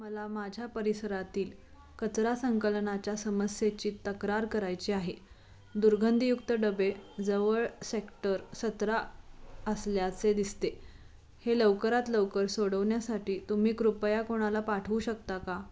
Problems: constant background noise